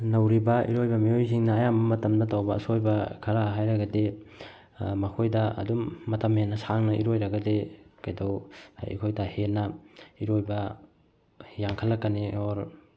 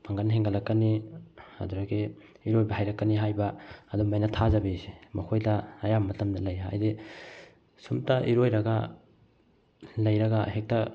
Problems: none marked